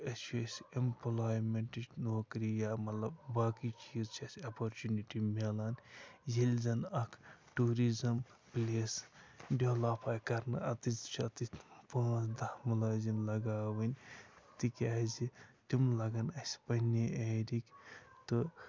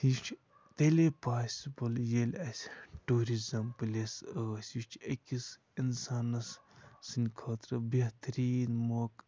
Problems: none marked